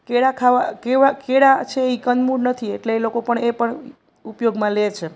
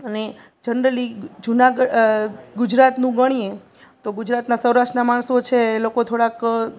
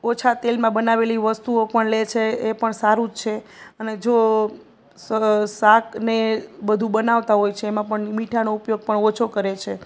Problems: none marked